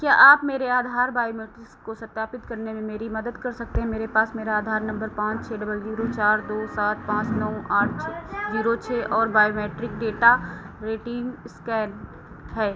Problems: constant background noise